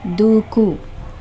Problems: constant background noise